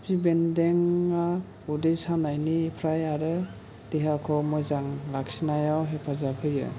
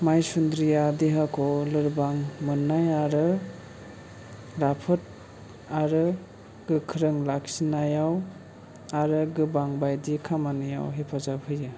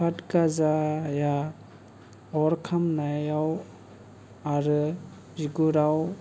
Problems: low volume